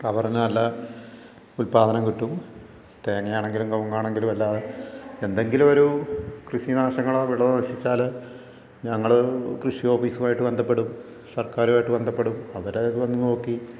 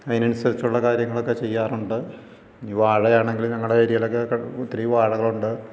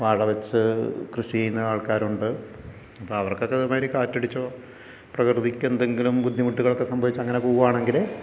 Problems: none marked